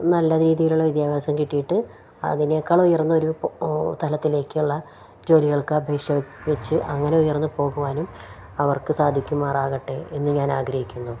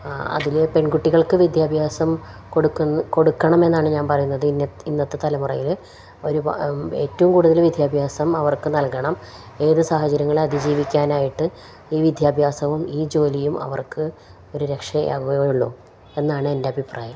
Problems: none marked